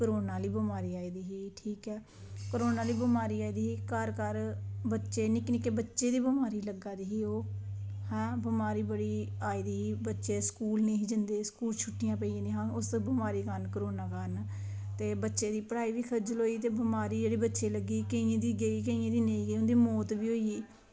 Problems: background sounds at intervals